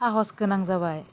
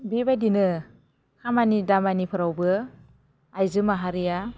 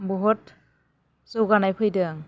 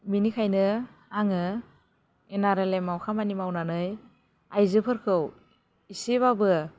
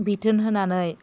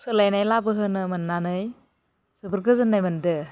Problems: constant background noise